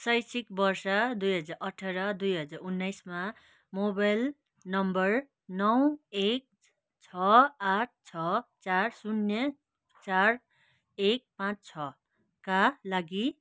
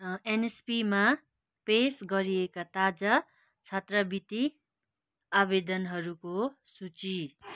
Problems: none marked